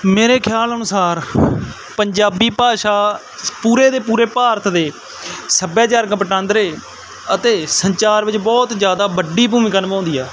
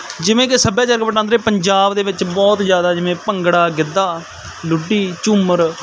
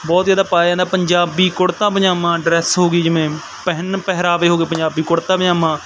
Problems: none marked